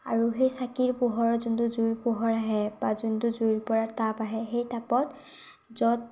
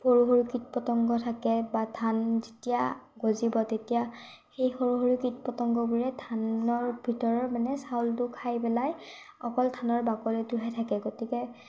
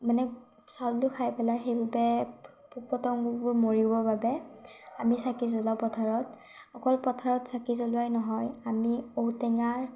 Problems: none marked